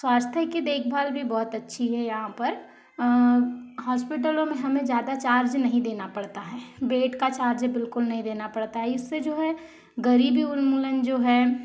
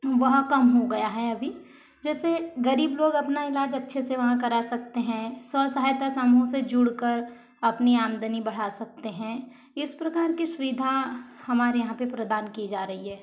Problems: constant background noise